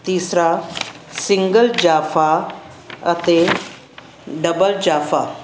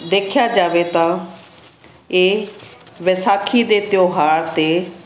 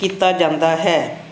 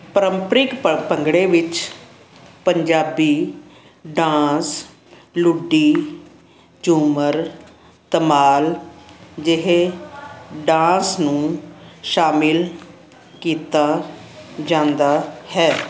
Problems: constant background noise